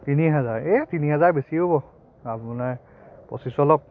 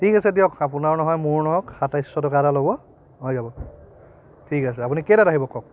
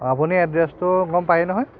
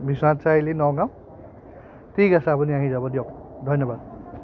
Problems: constant background noise, background conversations at intervals